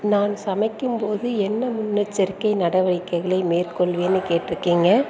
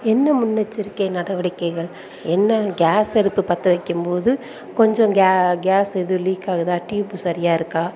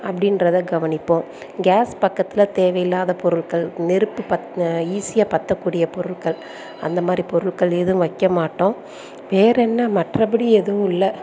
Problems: background sounds at intervals